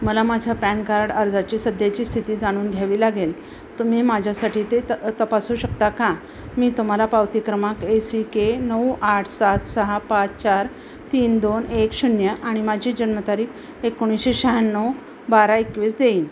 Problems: none marked